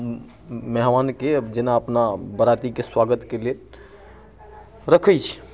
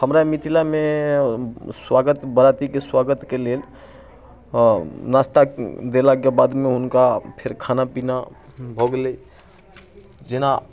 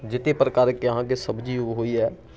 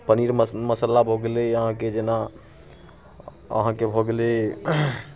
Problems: none marked